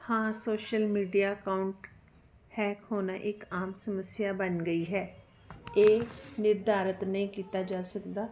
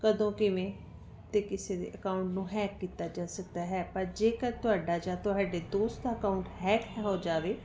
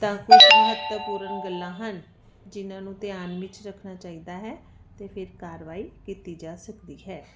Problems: none marked